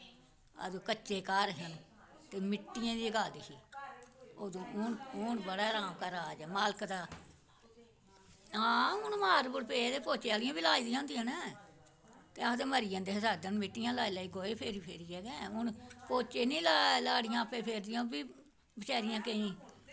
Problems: none marked